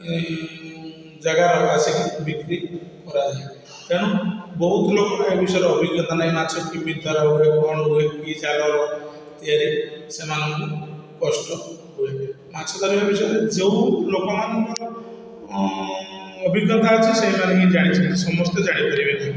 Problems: constant background noise, echo